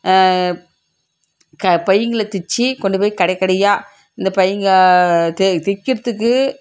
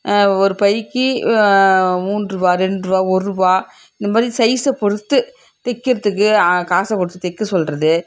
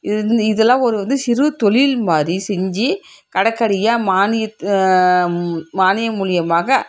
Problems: background sounds at intervals